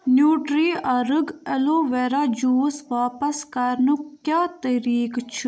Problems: background sounds at intervals